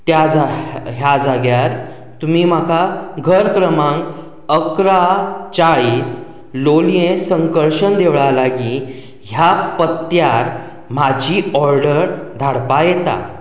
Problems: none marked